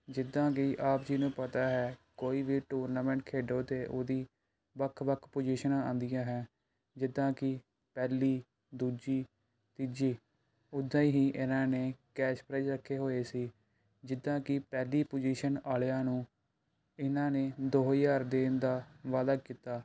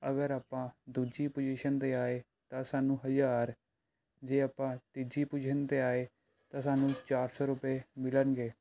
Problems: background sounds at intervals